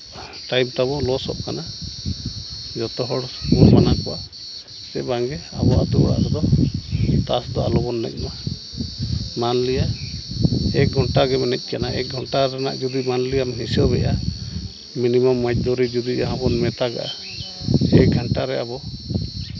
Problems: none marked